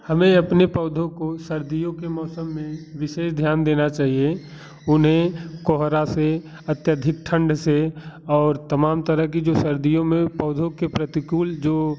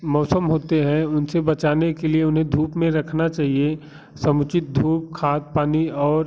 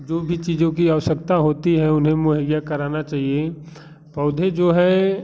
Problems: constant background noise